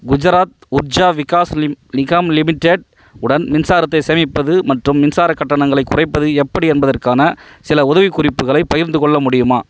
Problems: background sounds at intervals